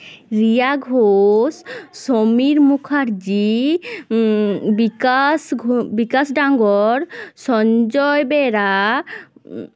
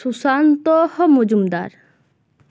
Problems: constant background noise